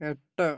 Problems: none marked